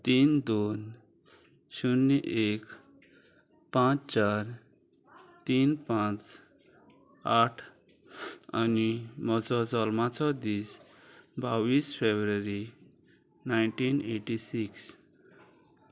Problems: none marked